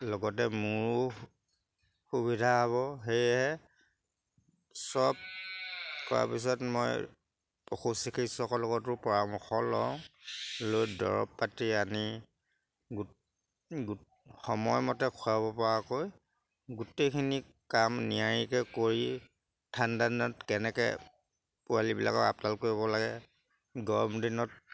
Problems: background sounds at intervals